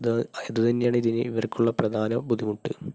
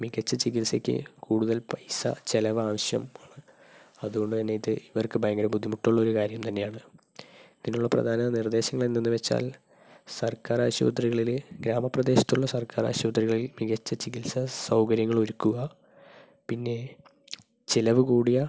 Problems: low volume